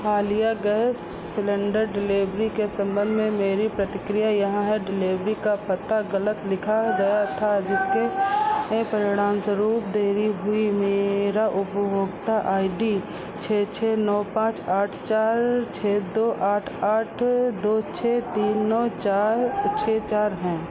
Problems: constant background noise